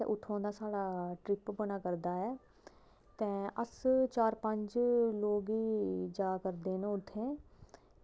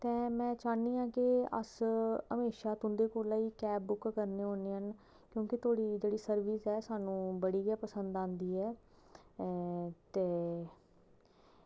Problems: none marked